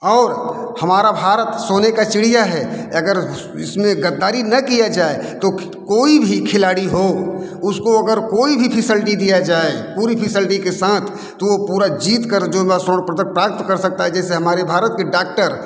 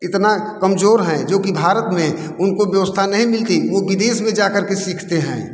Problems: background sounds at intervals, background conversations at intervals